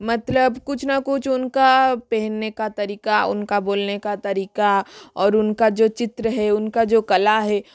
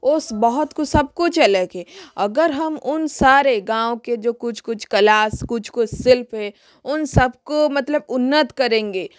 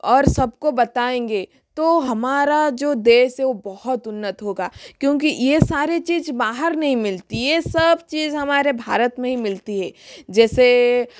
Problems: background sounds at intervals, echo